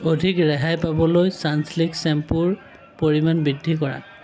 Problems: continuous background conversations